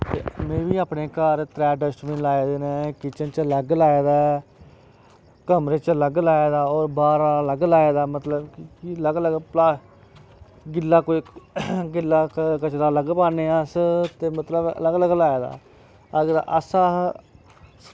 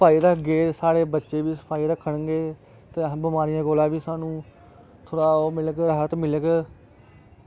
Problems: none marked